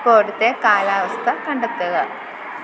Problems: constant background noise